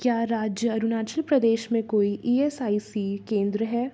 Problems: none marked